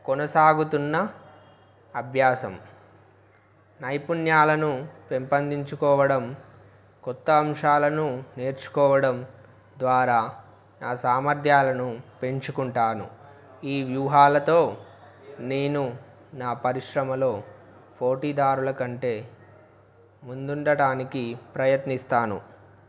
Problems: background sounds at intervals